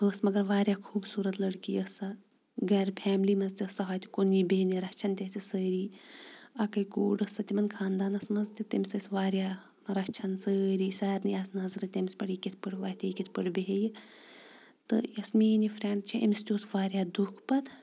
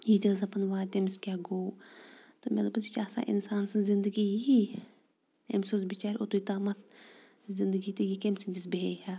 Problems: background sounds at intervals